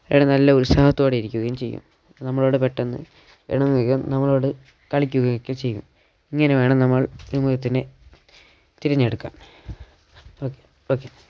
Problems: none marked